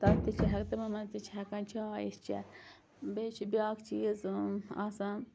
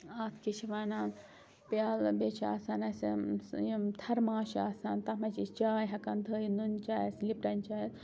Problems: constant background noise